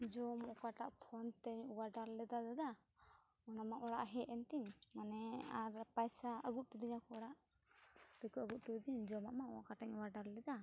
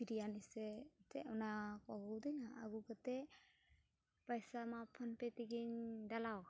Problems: background sounds at intervals, low volume